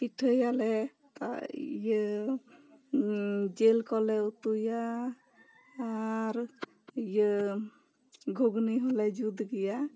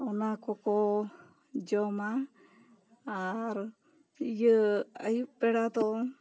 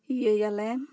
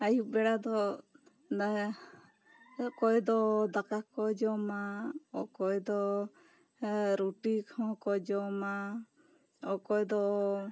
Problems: low volume